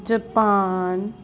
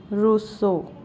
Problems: constant background noise